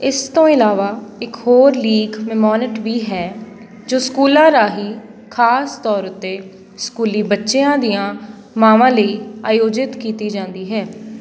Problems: background sounds at intervals